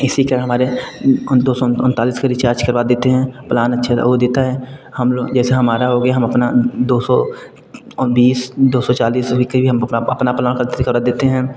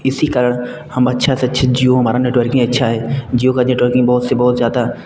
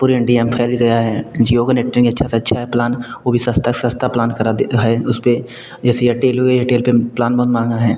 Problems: none marked